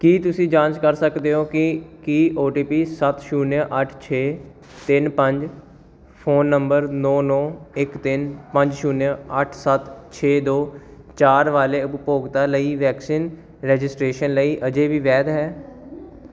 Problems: none marked